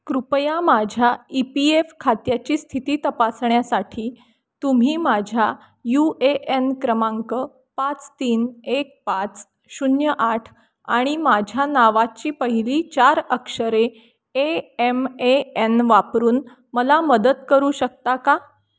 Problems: none marked